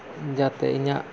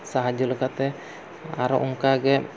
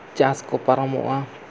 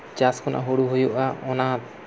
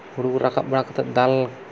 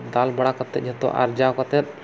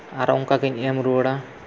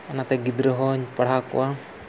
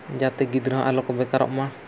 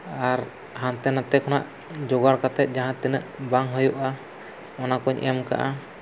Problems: none marked